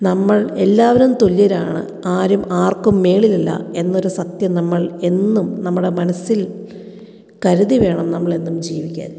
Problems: none marked